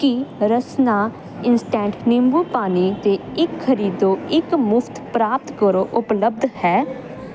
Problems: constant background noise